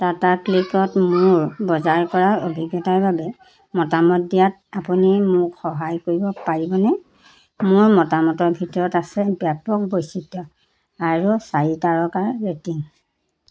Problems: constant background noise, background conversations at intervals